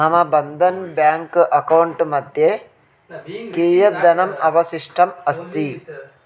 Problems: continuous background conversations